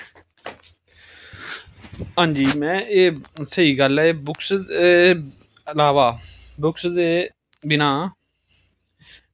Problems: none marked